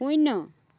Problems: none marked